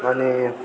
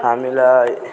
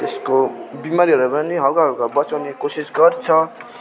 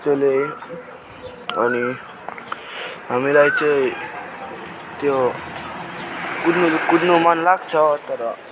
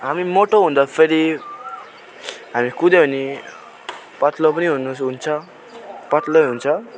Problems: continuous background conversations